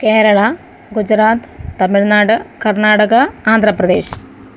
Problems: none marked